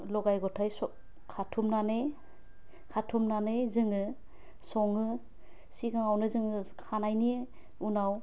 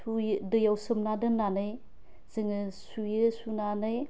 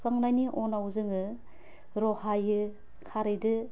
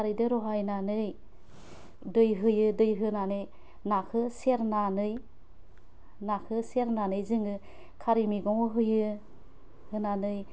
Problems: constant background noise